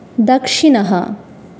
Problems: none marked